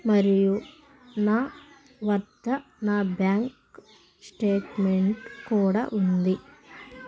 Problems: constant background noise